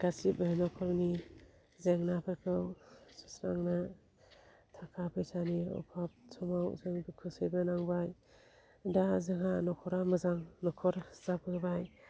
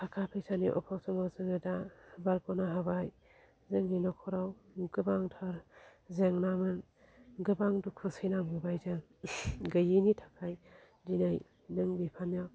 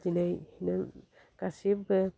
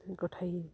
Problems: low volume